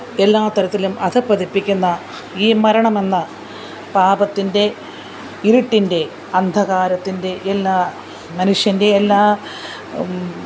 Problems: background sounds at intervals